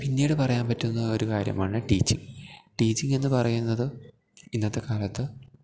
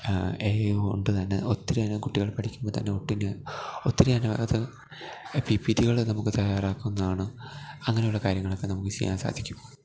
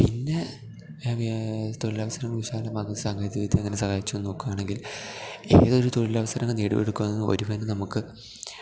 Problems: none marked